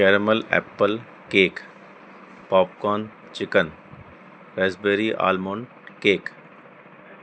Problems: constant background noise